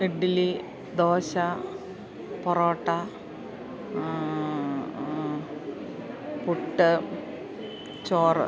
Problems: background sounds at intervals